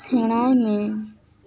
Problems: background sounds at intervals